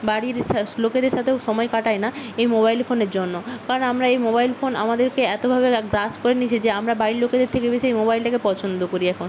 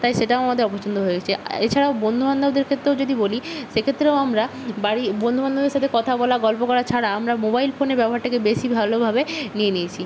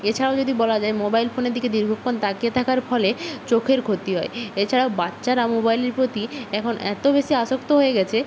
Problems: constant background noise